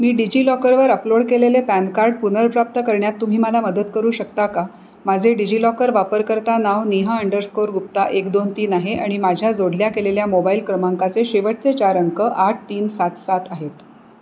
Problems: none marked